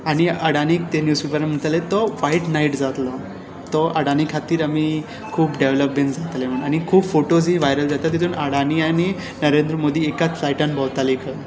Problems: constant background noise, background conversations at intervals